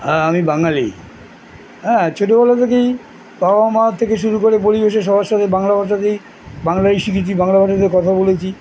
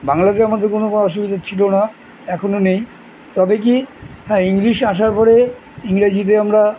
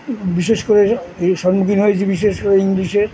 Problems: constant background noise